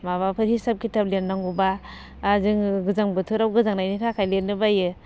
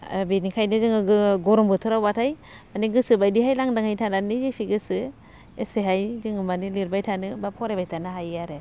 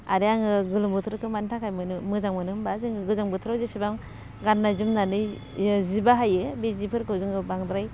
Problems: constant background noise